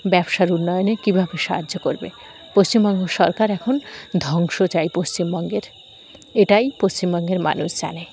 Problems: constant background noise, background conversations at intervals